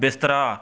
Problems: background sounds at intervals